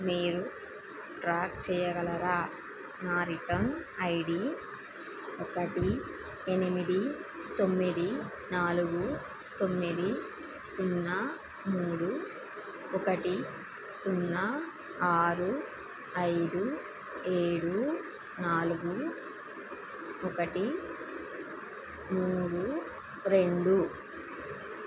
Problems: constant background noise